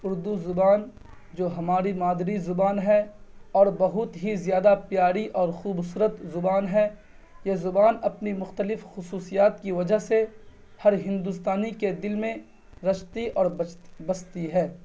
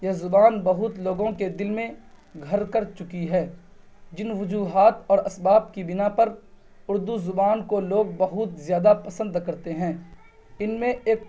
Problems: none marked